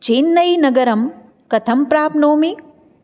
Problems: none marked